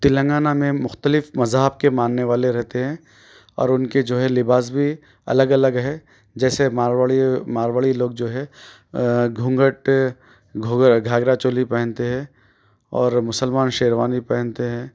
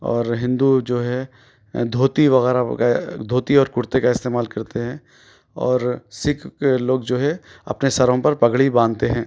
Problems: none marked